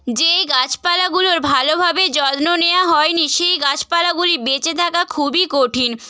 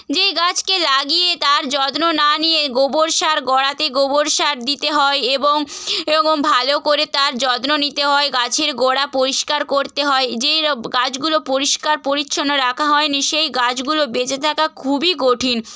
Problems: none marked